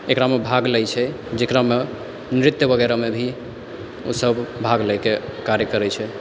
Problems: background sounds at intervals